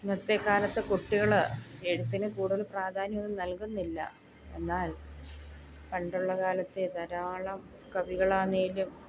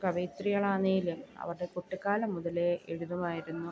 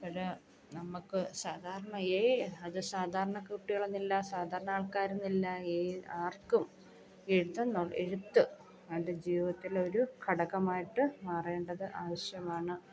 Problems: background sounds at intervals